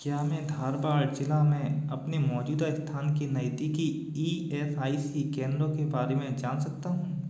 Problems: echo